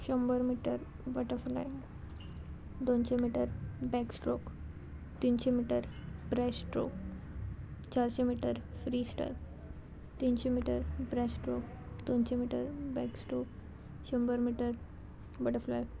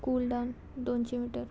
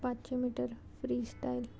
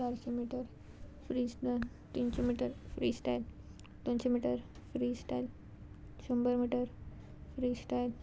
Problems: constant background noise